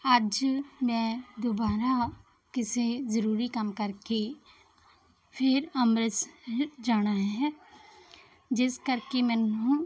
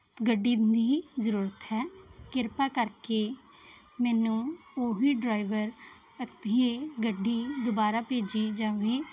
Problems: none marked